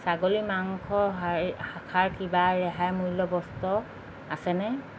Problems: none marked